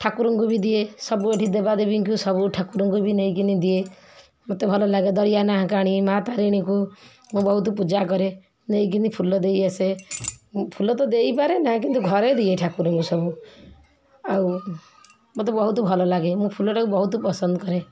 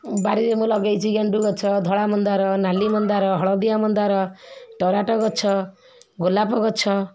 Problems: continuous background conversations